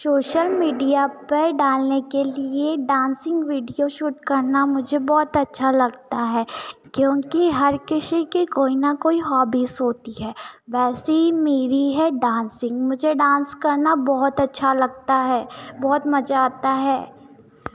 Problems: none marked